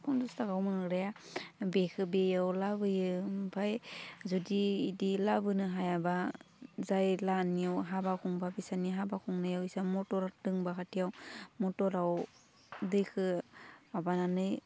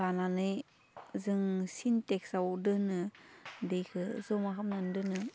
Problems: none marked